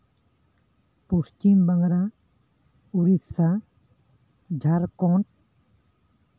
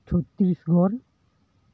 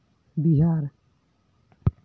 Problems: none marked